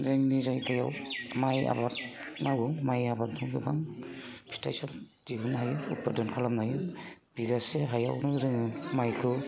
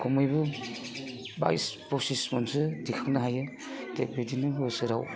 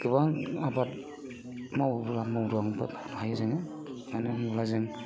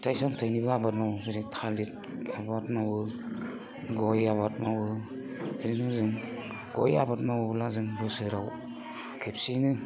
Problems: constant background noise